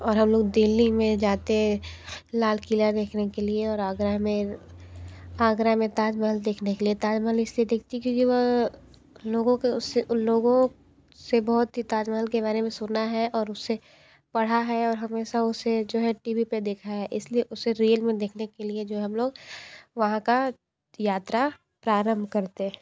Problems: none marked